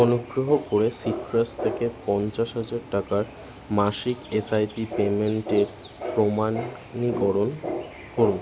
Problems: constant background noise, continuous background conversations